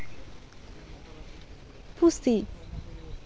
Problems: constant background noise